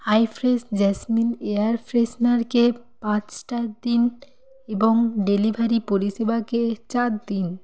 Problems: none marked